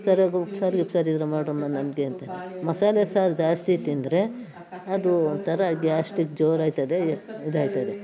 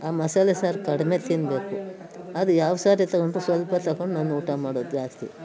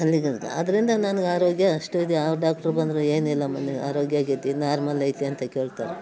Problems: background sounds at intervals